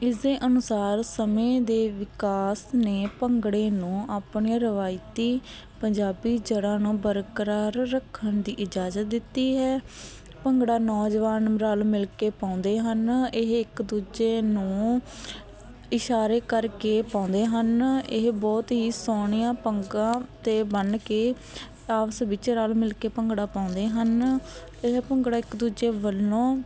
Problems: constant background noise